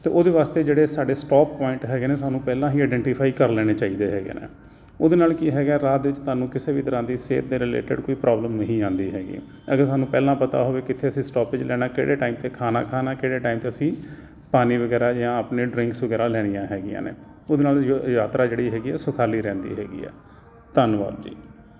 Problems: none marked